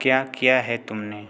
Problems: none marked